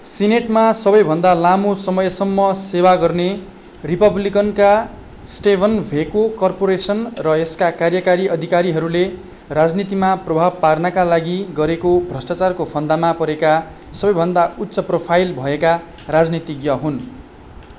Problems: constant background noise